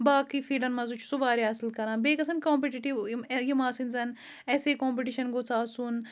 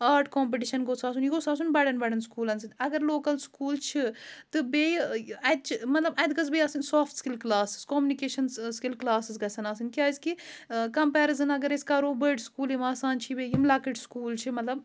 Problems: none marked